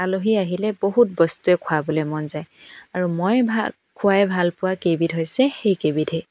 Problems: background sounds at intervals